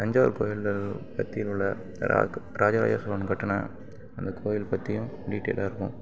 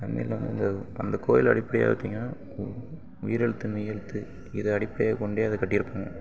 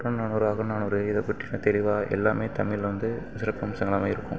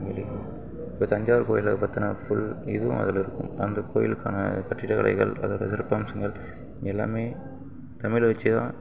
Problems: background sounds at intervals